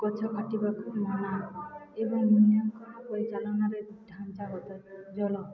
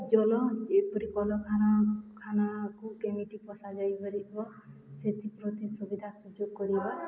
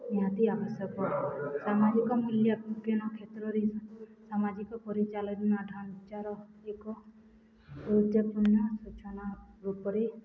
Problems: none marked